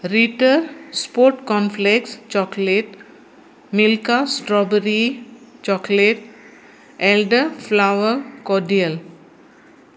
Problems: constant background noise